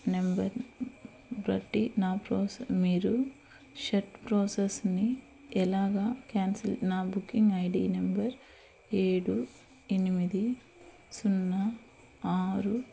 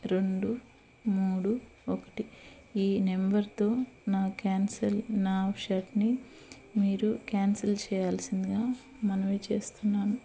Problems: constant background noise